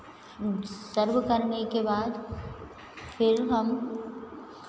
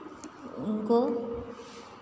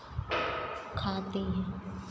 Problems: none marked